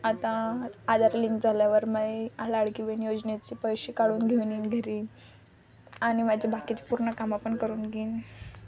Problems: none marked